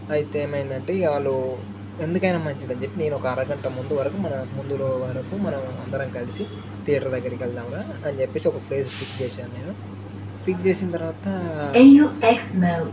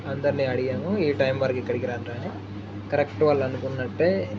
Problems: background sounds at intervals, background conversations at intervals, low volume